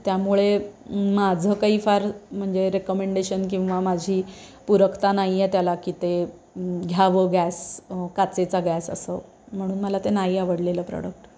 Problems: none marked